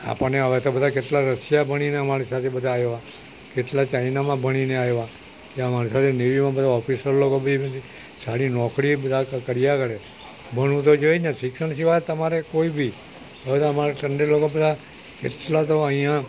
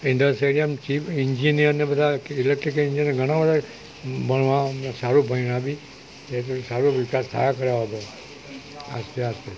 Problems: none marked